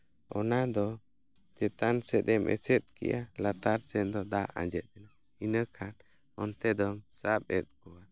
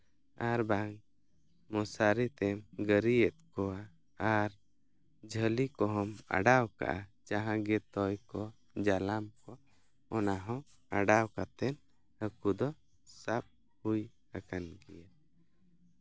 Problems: none marked